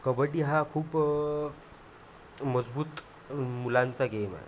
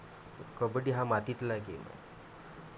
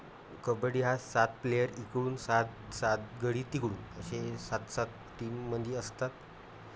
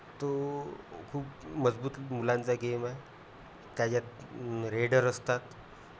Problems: none marked